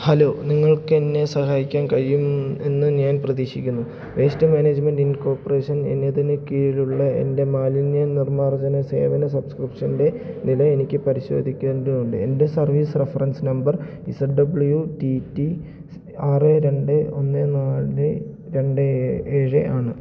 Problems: low volume